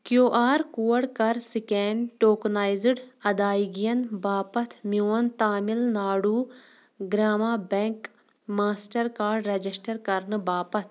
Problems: background sounds at intervals